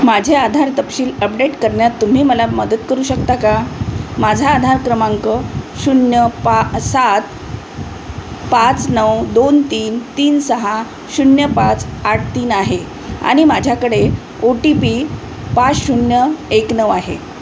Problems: constant background noise